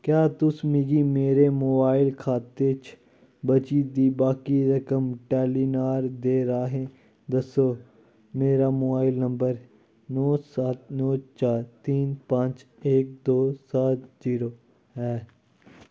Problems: none marked